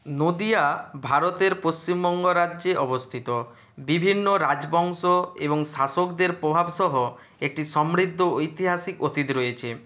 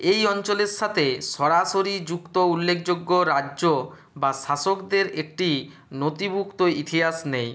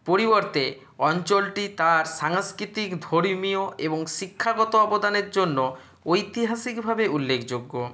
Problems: none marked